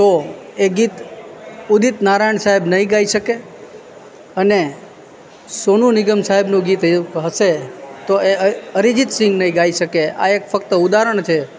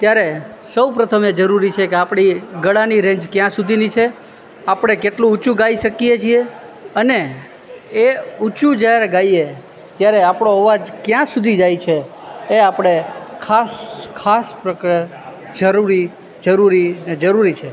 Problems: constant background noise